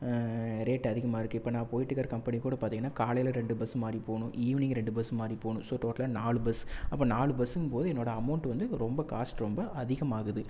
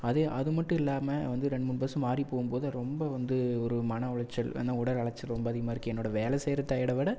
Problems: none marked